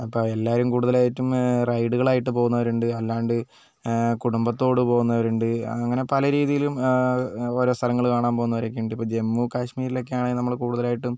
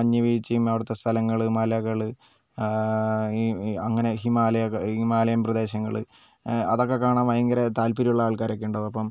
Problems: none marked